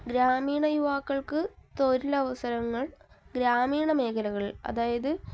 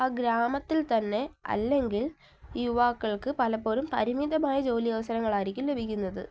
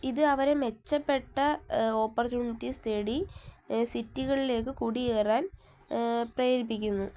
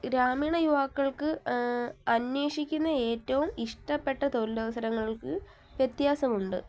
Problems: low volume